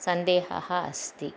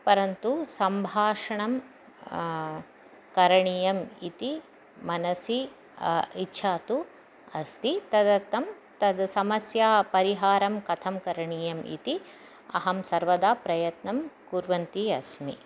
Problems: constant background noise